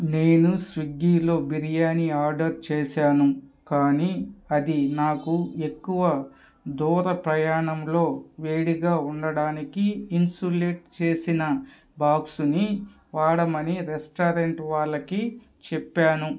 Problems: none marked